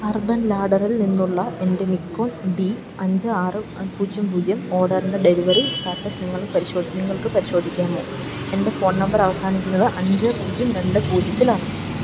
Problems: background sounds at intervals, low volume